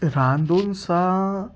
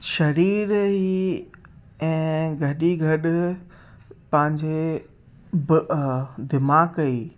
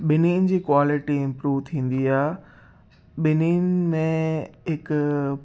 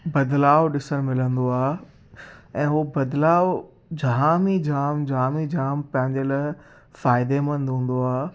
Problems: constant background noise